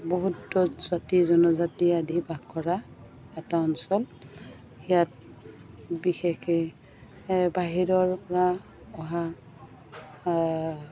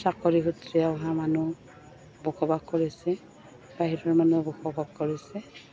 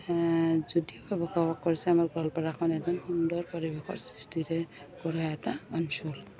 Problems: constant background noise, continuous background conversations